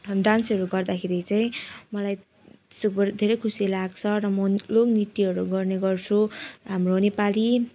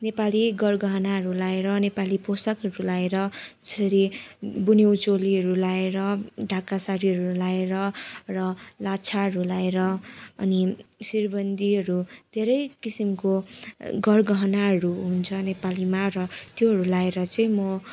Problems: constant background noise